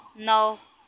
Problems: none marked